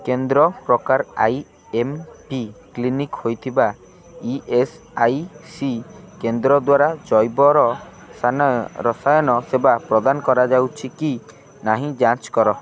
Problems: constant background noise, continuous background conversations